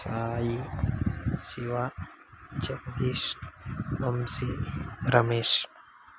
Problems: constant background noise, low volume